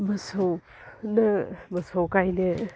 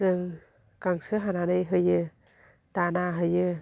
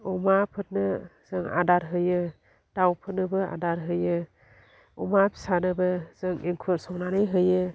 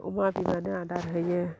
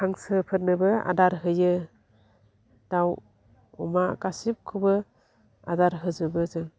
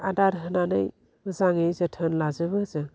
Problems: constant background noise